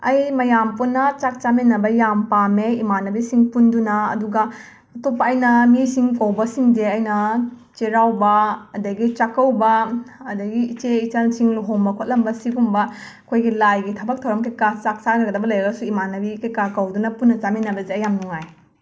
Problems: background sounds at intervals